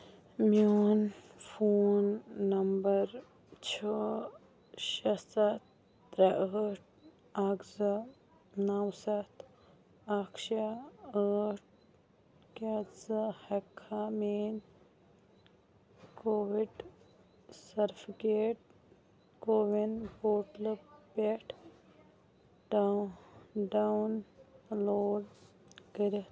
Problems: low volume